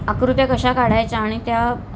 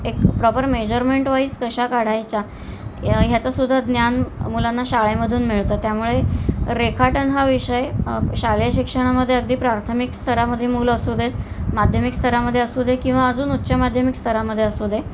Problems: constant background noise